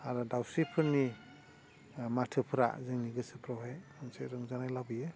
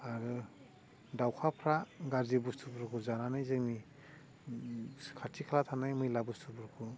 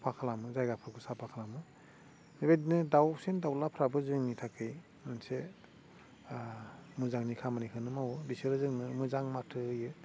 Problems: constant background noise